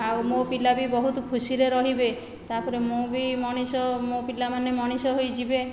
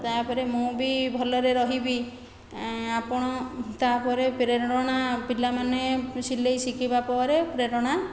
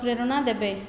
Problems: continuous background conversations